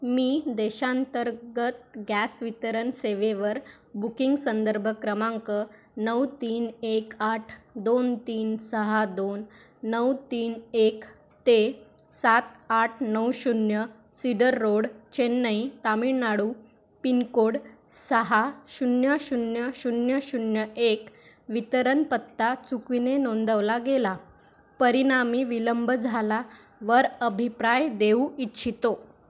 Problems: constant background noise